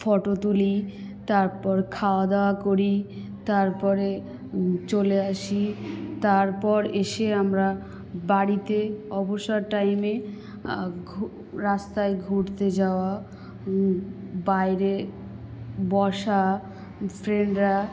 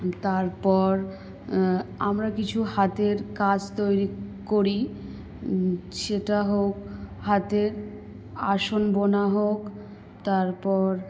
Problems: background sounds at intervals, background conversations at intervals